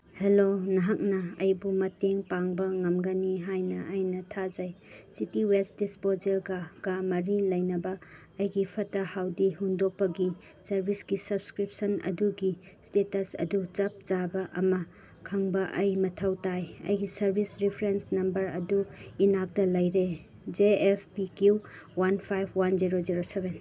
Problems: none marked